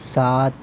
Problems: none marked